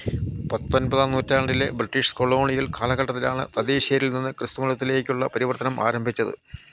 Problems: constant background noise, low volume